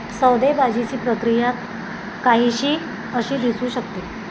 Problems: constant background noise